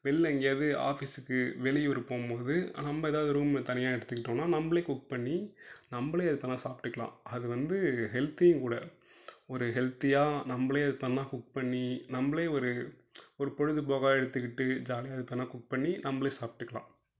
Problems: low volume